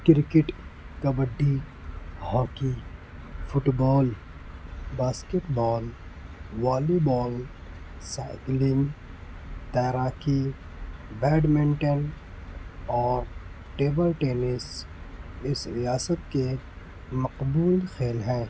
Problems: none marked